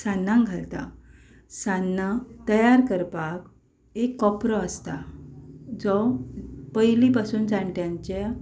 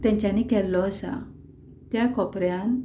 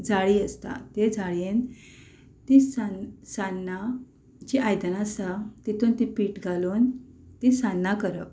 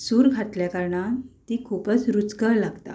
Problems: background sounds at intervals